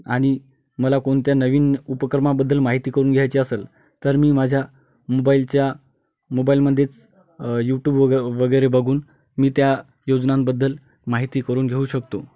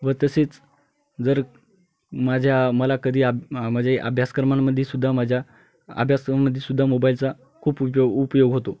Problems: constant background noise